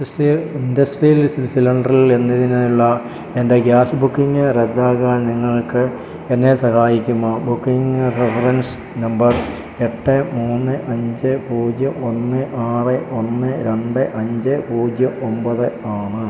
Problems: constant background noise